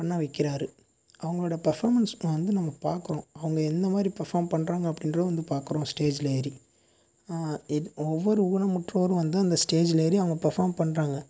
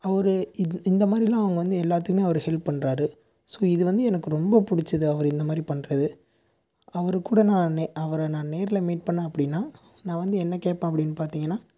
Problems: constant background noise